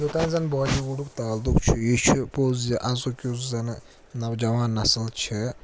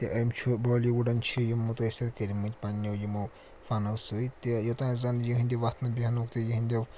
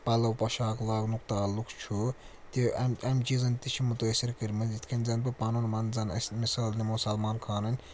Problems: constant background noise